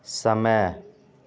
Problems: none marked